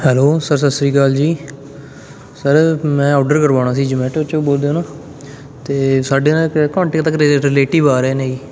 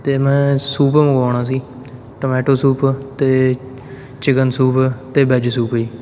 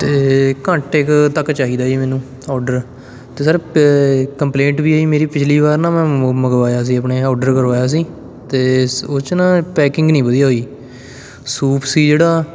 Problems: background sounds at intervals, background conversations at intervals